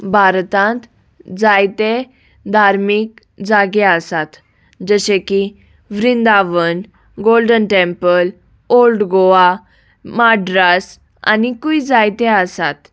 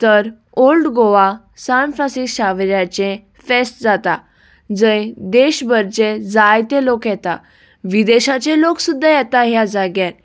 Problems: background sounds at intervals